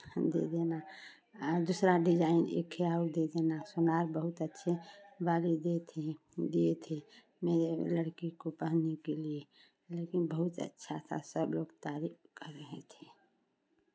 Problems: background sounds at intervals, background conversations at intervals